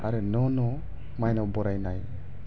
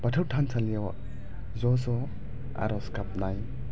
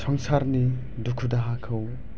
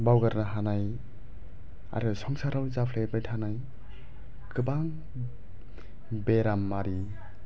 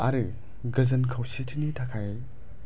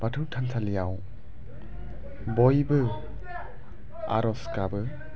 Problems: low volume